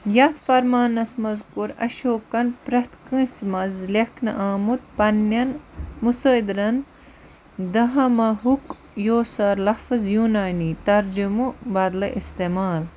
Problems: constant background noise